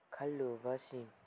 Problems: low volume